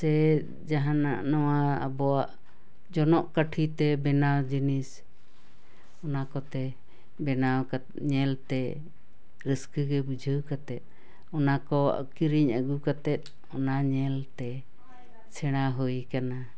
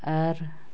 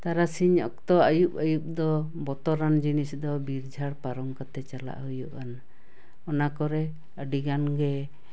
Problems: none marked